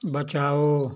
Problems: none marked